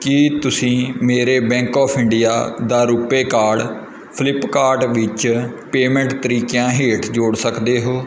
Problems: none marked